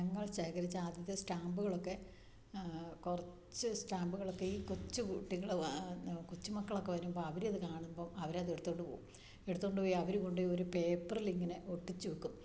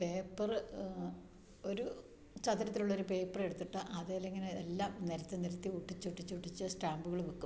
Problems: low volume